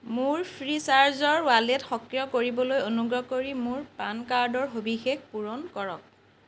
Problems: none marked